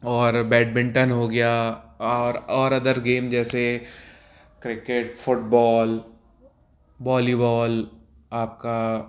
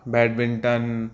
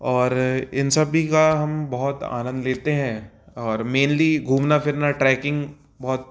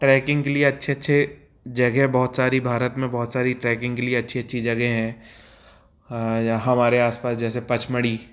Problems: background sounds at intervals